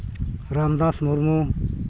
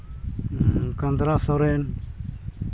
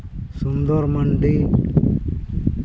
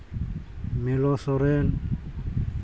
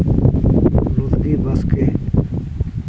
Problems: constant background noise